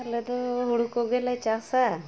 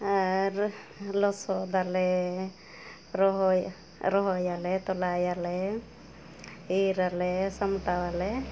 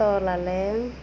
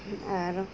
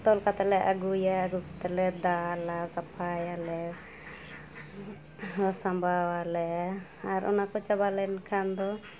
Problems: background sounds at intervals